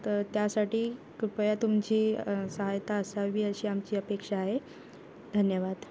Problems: background sounds at intervals